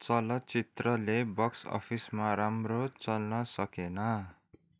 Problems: none marked